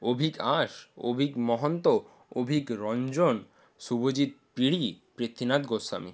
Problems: constant background noise